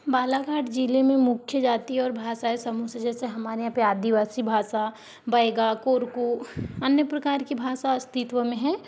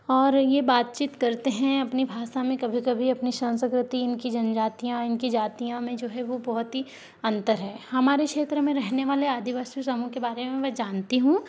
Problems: background sounds at intervals